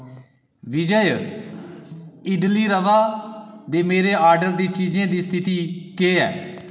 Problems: echo